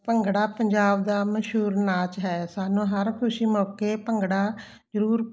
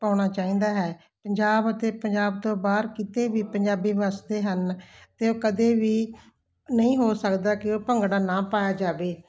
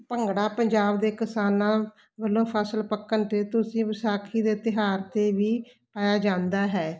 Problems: none marked